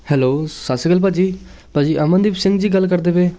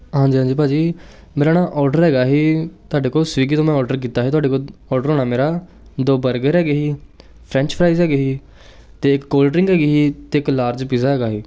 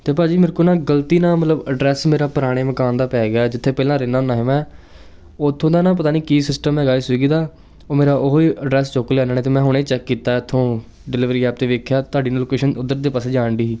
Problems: none marked